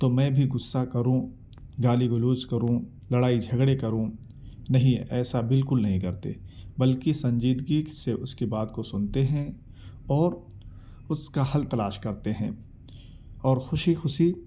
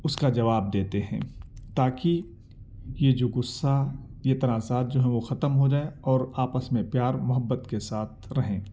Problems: none marked